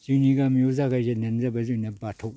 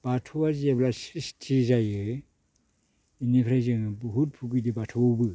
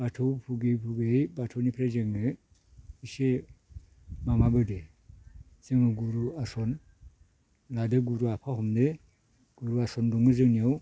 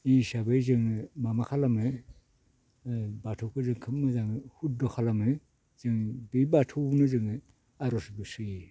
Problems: none marked